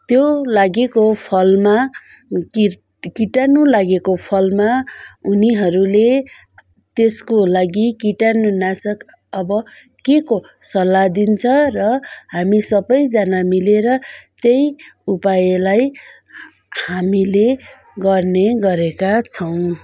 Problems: background sounds at intervals